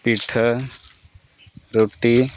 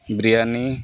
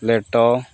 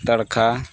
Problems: background sounds at intervals